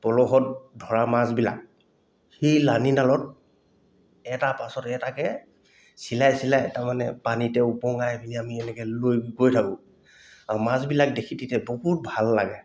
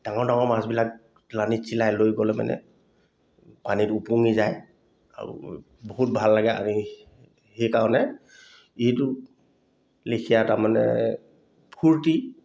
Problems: none marked